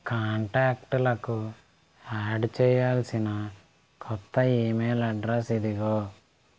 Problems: constant background noise